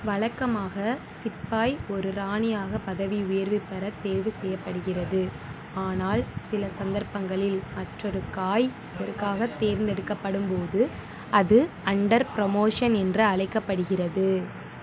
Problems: constant background noise